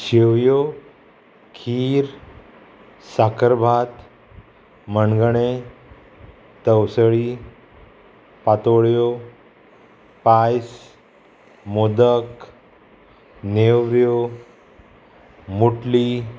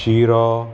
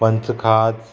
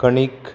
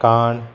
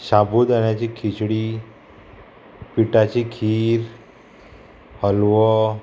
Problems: constant background noise